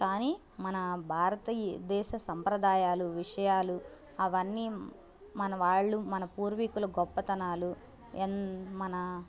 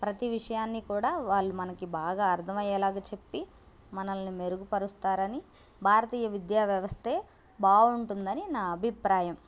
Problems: none marked